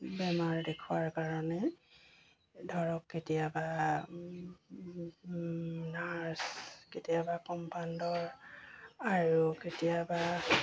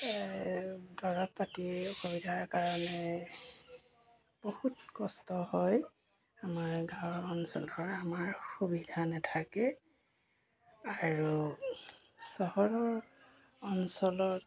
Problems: constant background noise